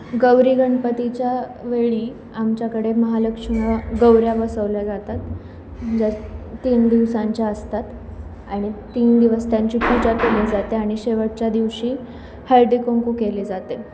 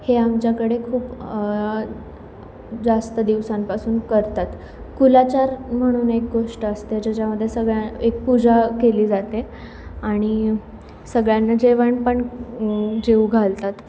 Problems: none marked